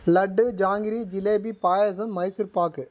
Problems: none marked